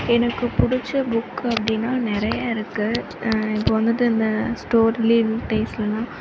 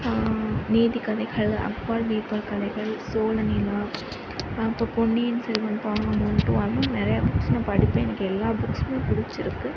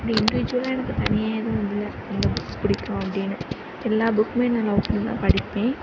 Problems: constant background noise